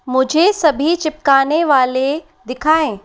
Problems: constant background noise